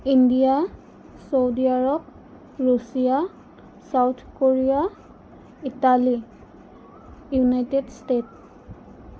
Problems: none marked